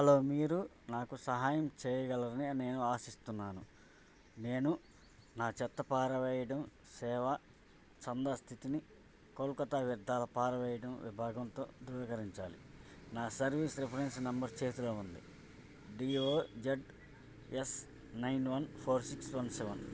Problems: low volume